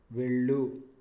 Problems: low volume